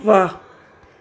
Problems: constant background noise, echo